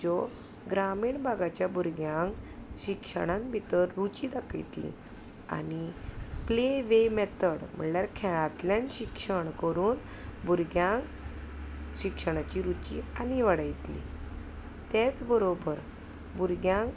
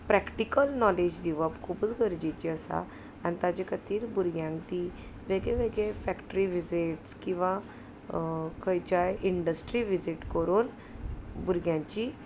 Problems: none marked